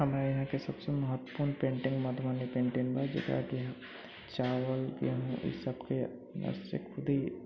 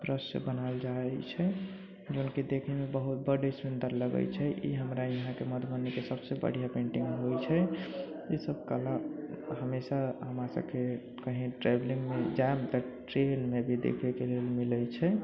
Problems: background sounds at intervals, low volume